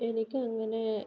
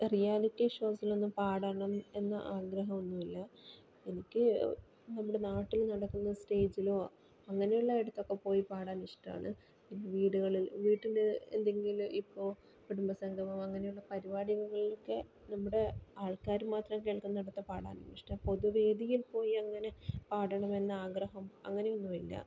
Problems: low volume